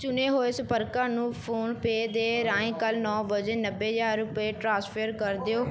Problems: background sounds at intervals